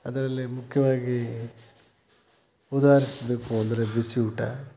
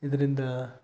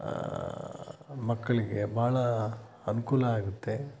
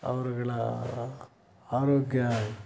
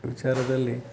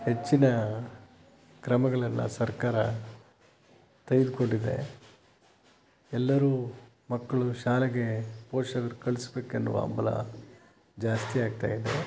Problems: constant background noise